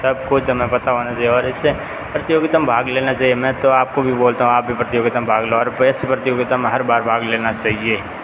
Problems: constant background noise